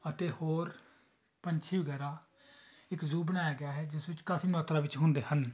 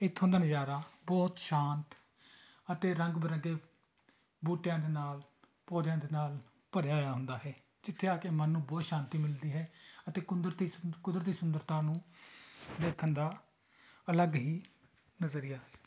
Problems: continuous background conversations